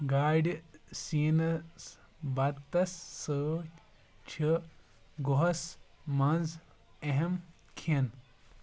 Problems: background sounds at intervals